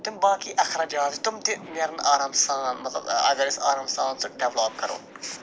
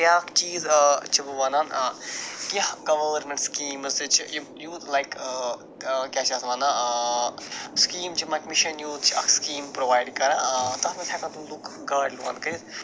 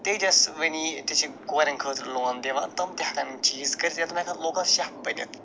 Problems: constant background noise